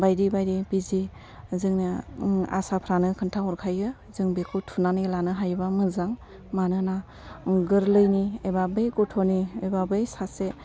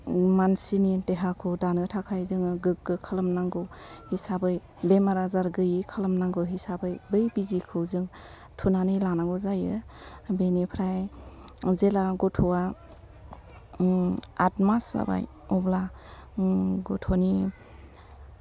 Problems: low volume